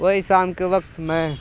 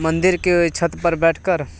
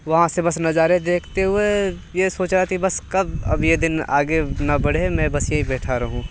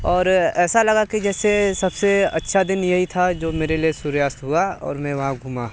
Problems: none marked